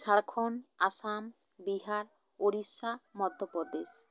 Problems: none marked